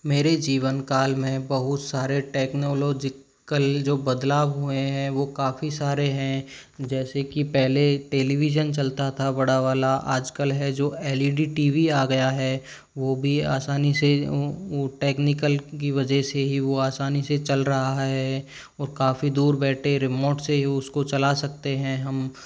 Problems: none marked